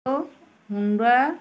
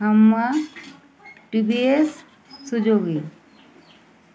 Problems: constant background noise, background conversations at intervals